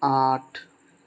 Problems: none marked